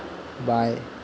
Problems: none marked